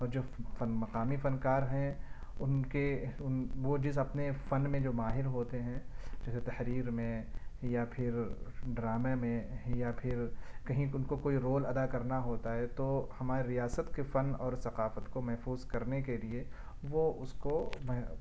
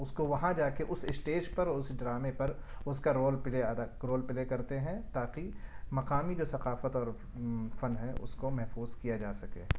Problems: none marked